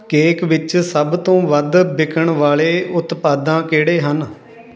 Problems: continuous background conversations